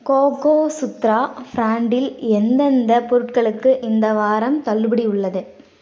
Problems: constant background noise